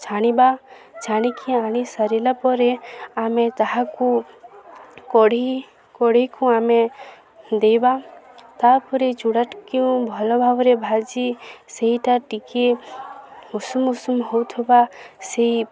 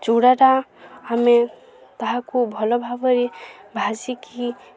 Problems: none marked